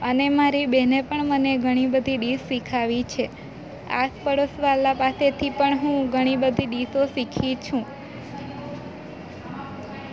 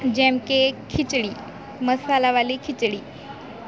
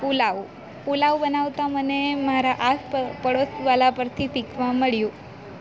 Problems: none marked